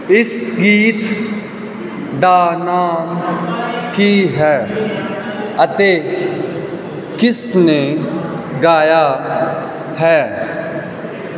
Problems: none marked